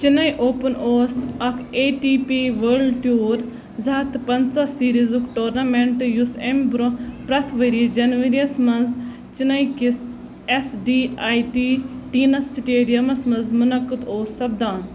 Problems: constant background noise